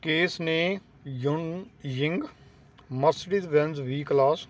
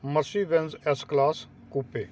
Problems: constant background noise